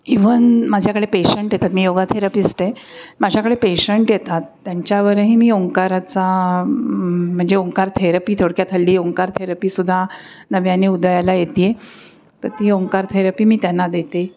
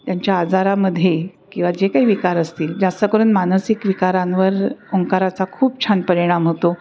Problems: none marked